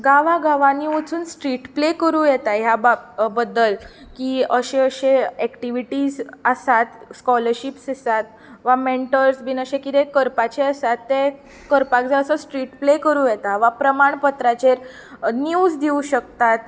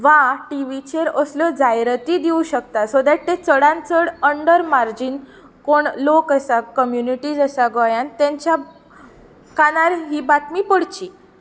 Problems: constant background noise